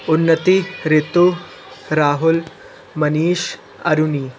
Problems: constant background noise, continuous background conversations